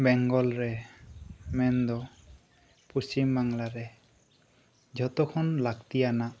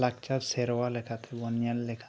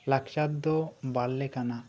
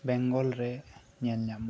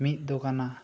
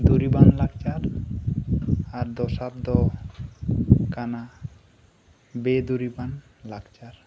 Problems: background sounds at intervals